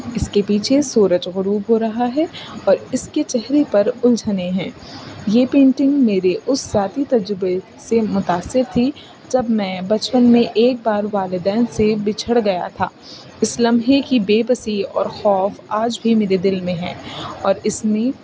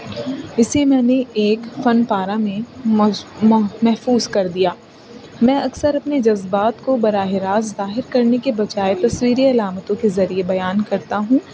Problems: constant background noise